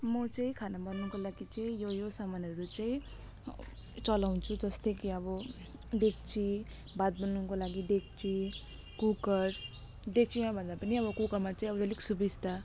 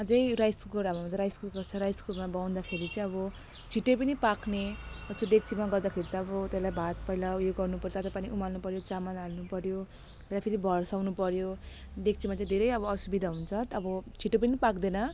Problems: constant background noise